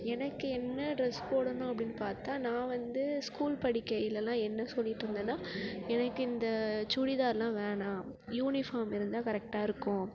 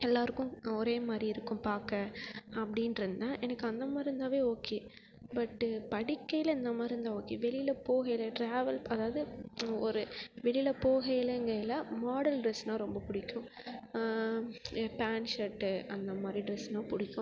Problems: continuous background conversations